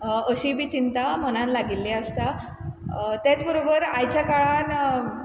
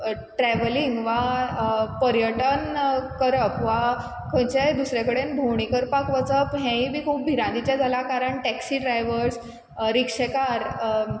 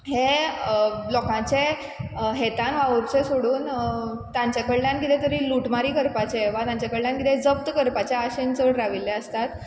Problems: constant background noise